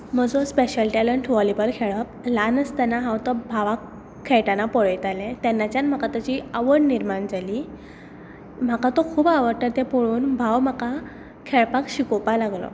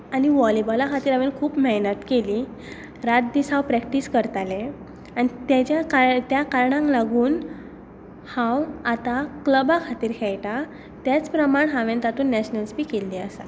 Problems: background sounds at intervals